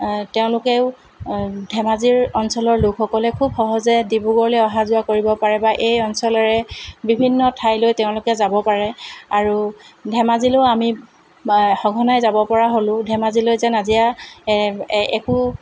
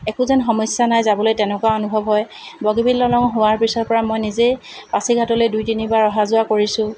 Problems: none marked